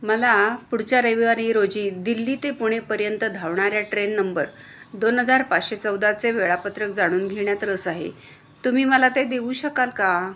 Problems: constant background noise